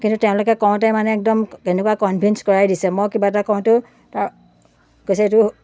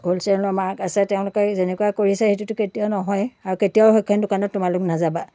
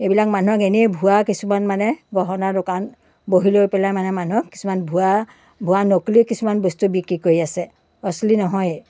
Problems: none marked